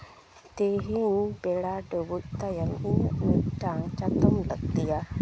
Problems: background sounds at intervals